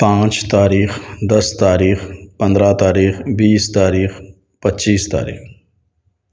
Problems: none marked